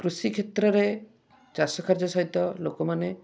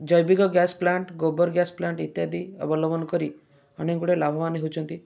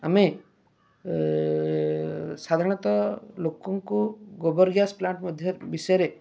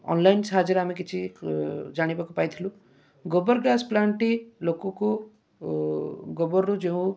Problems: none marked